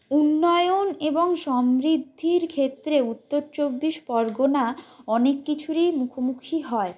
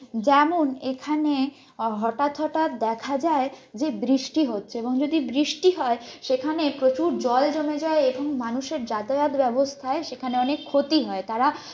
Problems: constant background noise